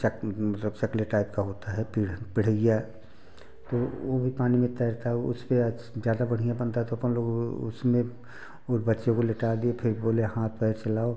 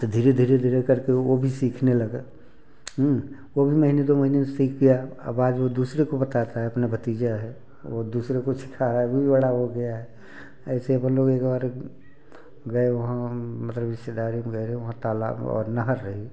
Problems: background sounds at intervals, continuous background conversations